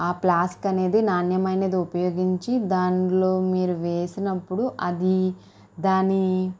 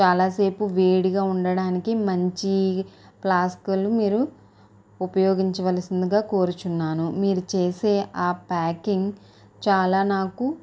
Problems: none marked